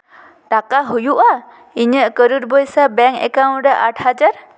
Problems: echo